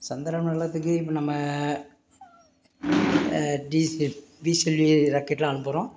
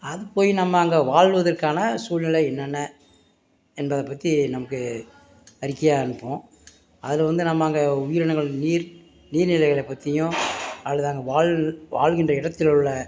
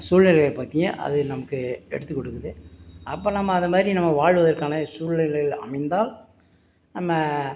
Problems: background sounds at intervals